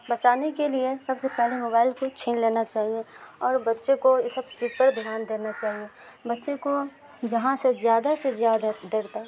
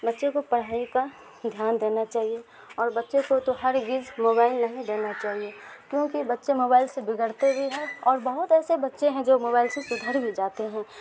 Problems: constant background noise